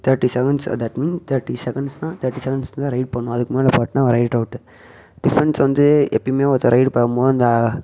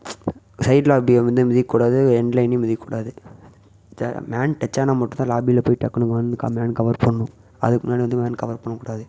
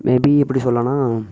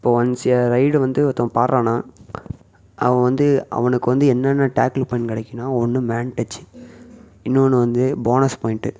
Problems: echo